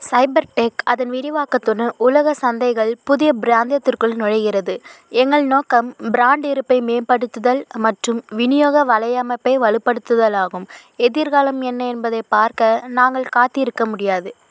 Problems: constant background noise